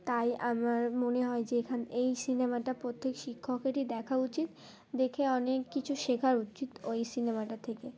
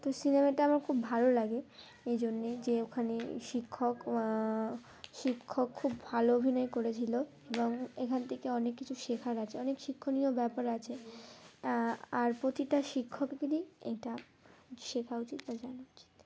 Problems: constant background noise, background conversations at intervals